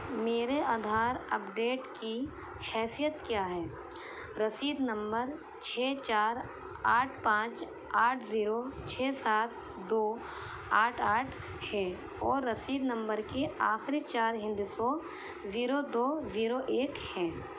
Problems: constant background noise